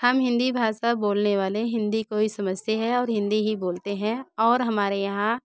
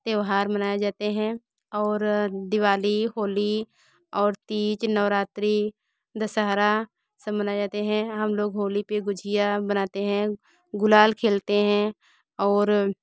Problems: background sounds at intervals, continuous background conversations